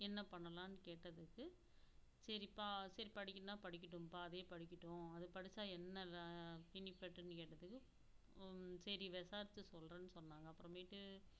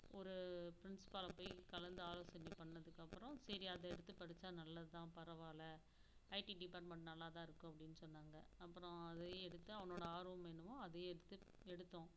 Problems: background sounds at intervals, low volume